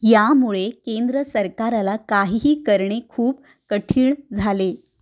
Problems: background sounds at intervals